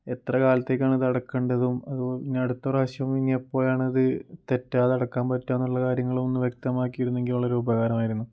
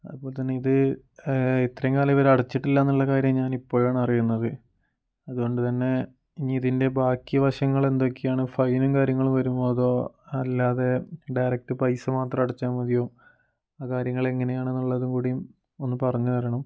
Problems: none marked